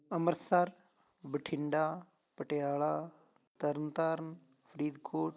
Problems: continuous background conversations